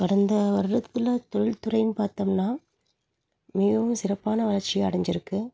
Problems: background sounds at intervals